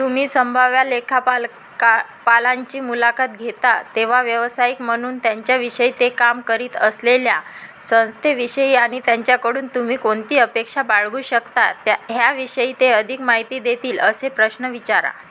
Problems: constant background noise